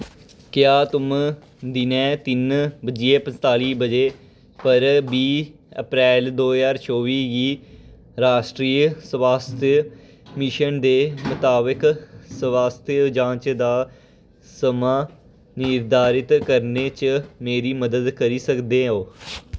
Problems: none marked